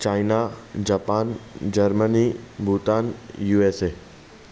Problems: constant background noise